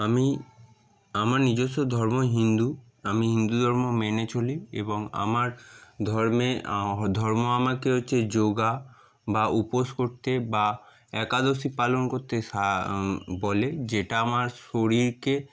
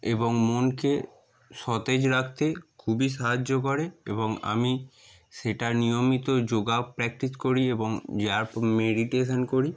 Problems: none marked